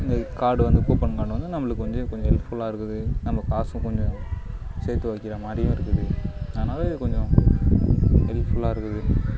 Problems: low volume